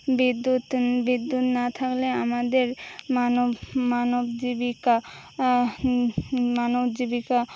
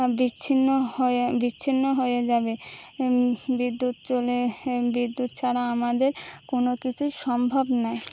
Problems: none marked